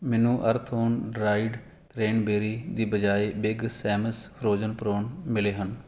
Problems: none marked